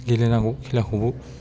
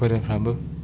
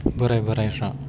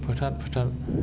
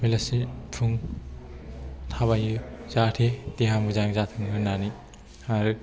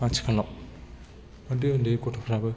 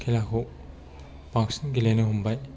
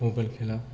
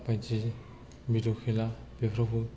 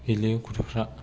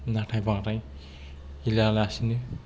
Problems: low volume